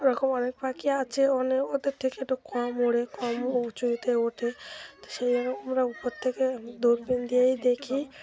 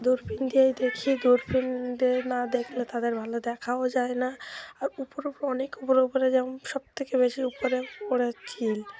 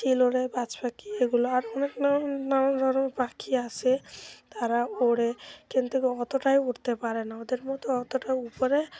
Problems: constant background noise